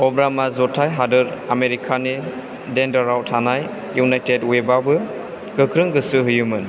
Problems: none marked